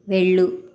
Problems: none marked